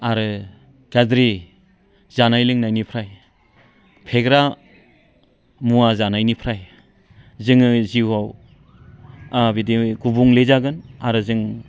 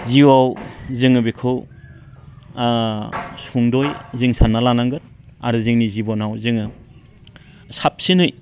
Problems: constant background noise